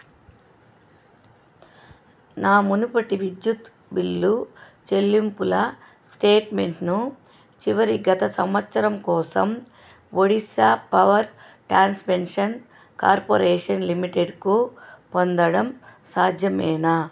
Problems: constant background noise